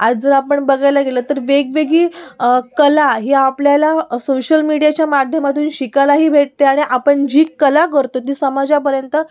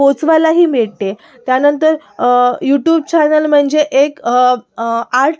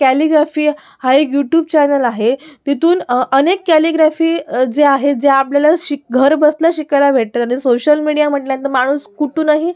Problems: background sounds at intervals